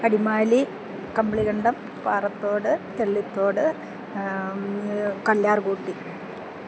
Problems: constant background noise